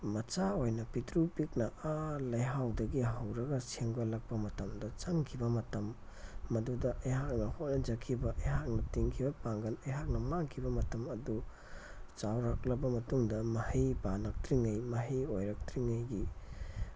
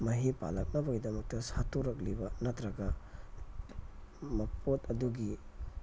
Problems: background sounds at intervals, low volume